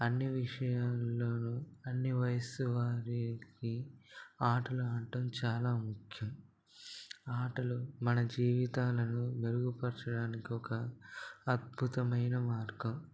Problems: low volume